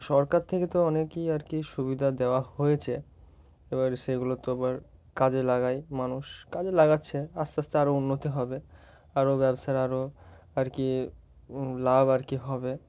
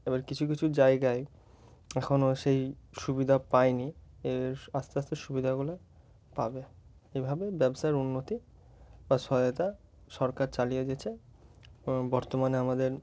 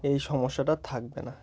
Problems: background sounds at intervals